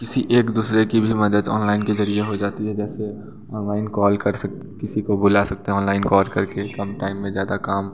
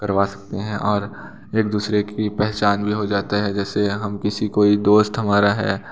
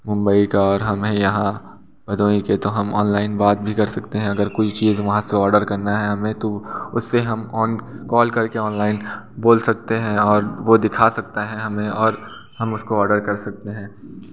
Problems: constant background noise, continuous background conversations, echo